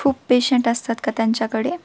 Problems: constant background noise